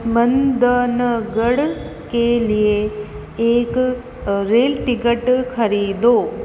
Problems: constant background noise, echo